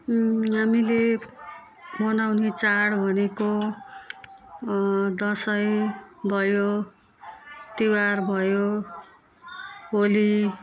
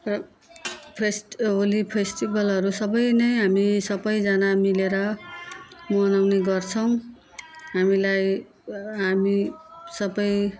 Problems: continuous background conversations